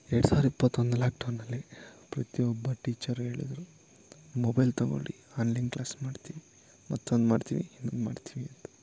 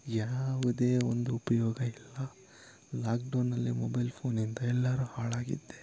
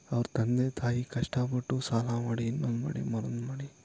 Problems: background sounds at intervals